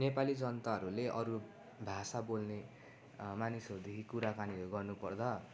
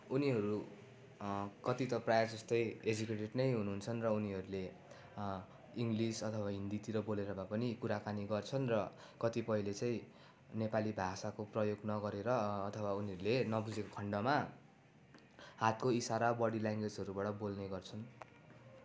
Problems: constant background noise